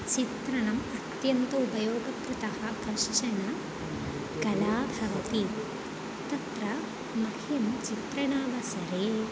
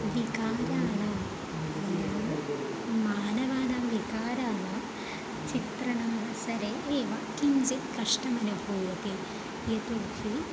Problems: background conversations at intervals